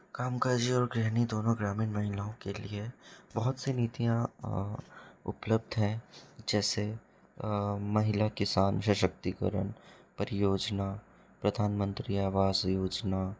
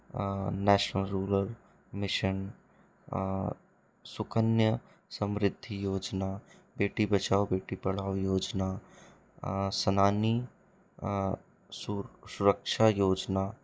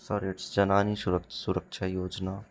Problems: low volume